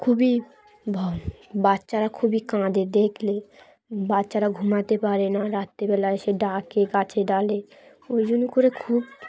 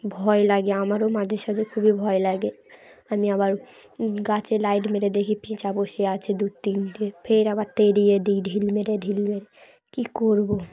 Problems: continuous background conversations